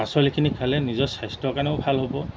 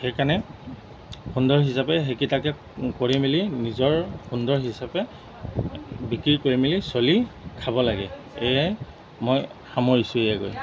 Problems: constant background noise